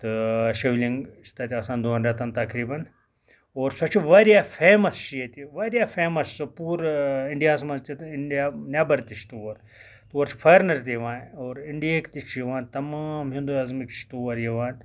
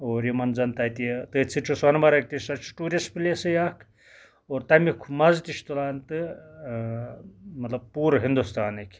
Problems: background sounds at intervals